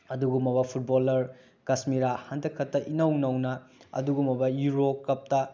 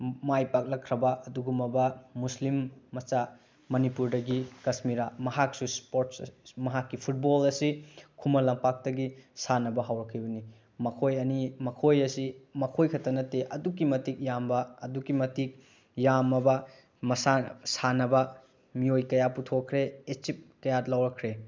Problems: none marked